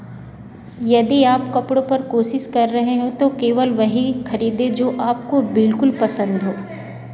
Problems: constant background noise